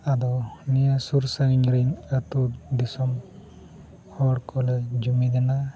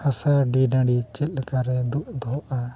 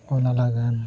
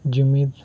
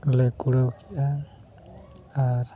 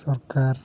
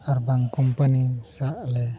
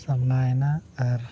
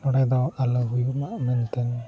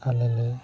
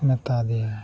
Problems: constant background noise, background conversations at intervals